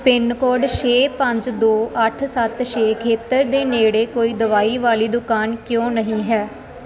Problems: none marked